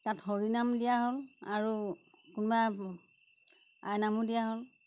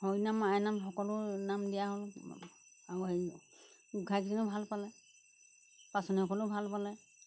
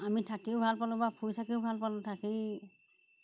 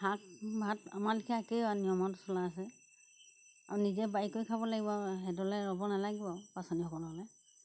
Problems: background sounds at intervals